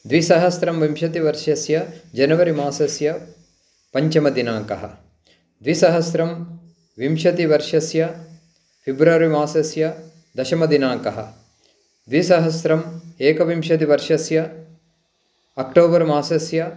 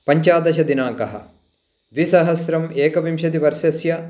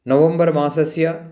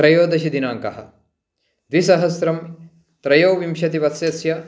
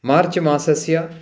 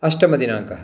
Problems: none marked